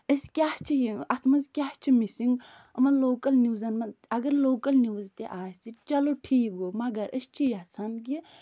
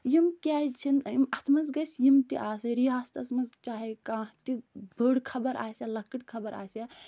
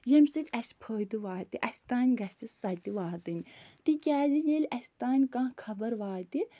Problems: none marked